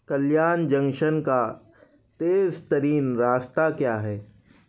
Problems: none marked